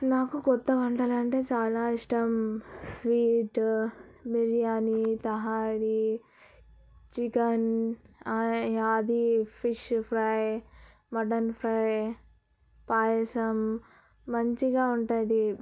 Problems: low volume